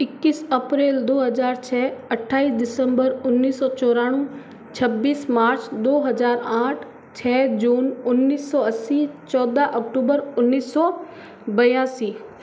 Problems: background sounds at intervals